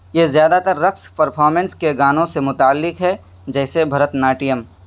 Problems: background sounds at intervals